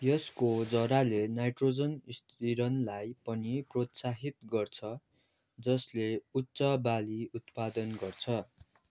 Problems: none marked